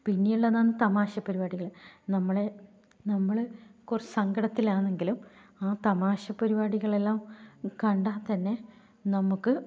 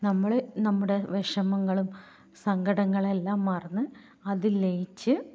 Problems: low volume